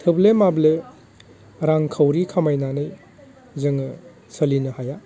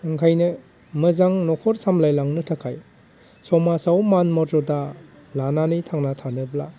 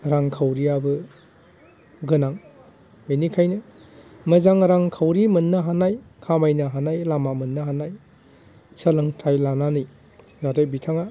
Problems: none marked